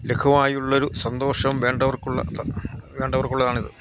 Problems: constant background noise, low volume